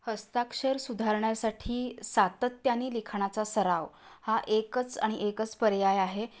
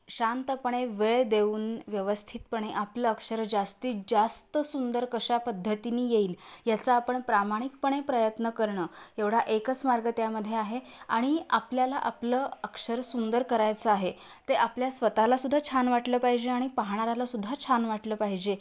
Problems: constant background noise